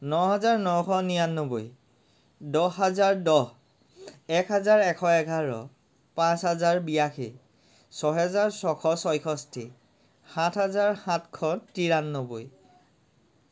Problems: none marked